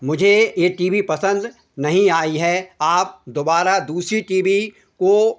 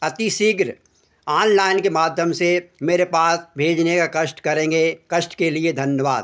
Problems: constant background noise